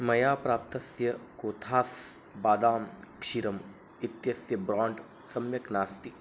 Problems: background sounds at intervals